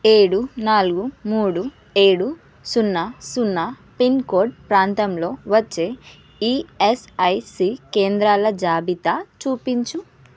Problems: constant background noise